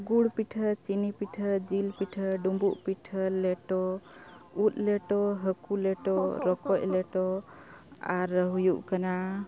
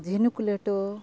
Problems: constant background noise